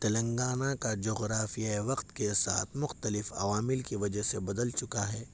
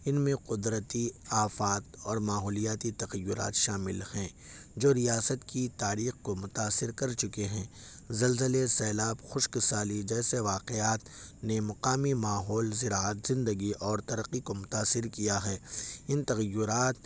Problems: none marked